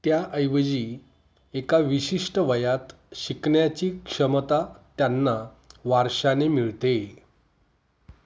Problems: none marked